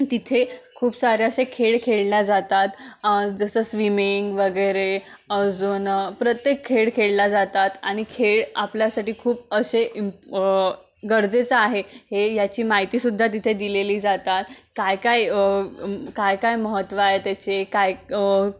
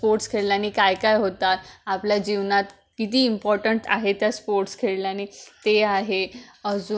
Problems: none marked